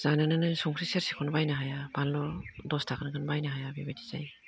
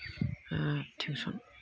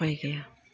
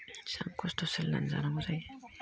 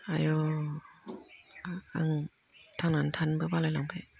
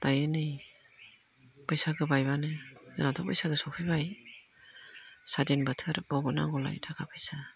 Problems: low volume